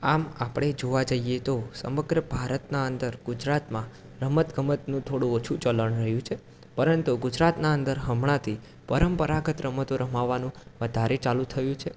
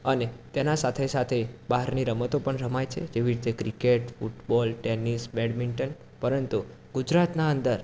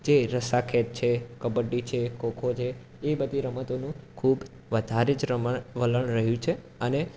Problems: constant background noise